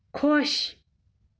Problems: background sounds at intervals